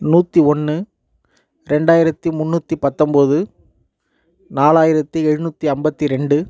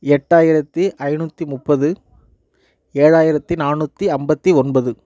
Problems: none marked